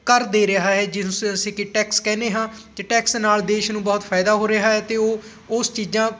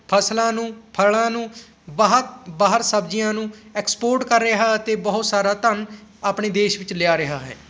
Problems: constant background noise